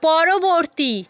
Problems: background sounds at intervals